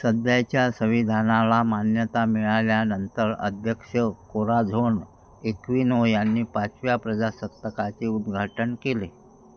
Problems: constant background noise